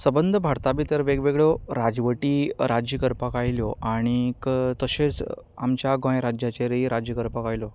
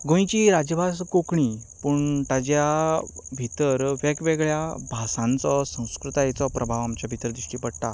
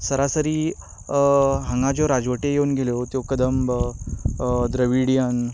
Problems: constant background noise